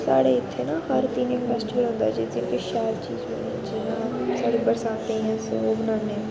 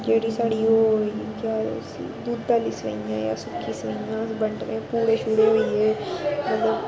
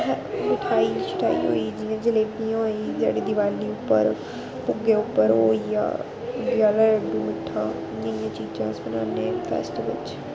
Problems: constant background noise